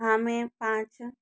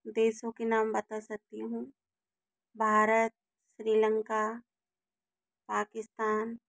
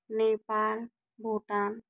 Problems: none marked